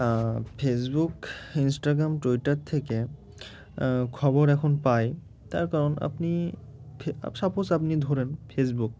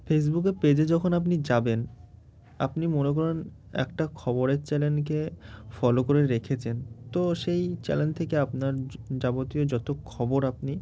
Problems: background sounds at intervals